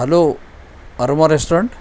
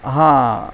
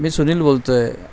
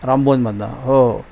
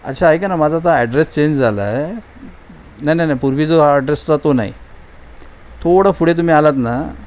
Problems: constant background noise